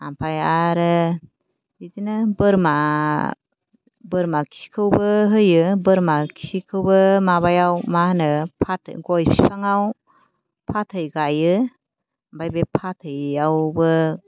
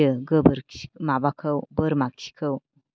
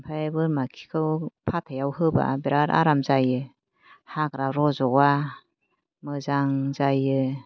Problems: none marked